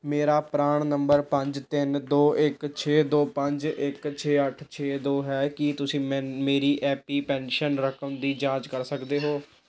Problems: none marked